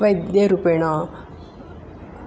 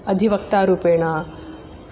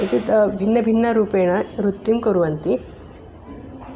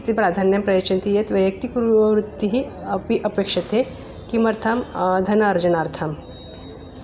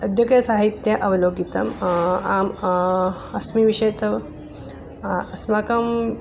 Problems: constant background noise